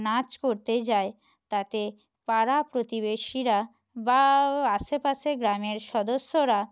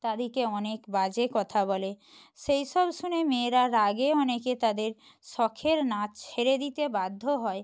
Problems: none marked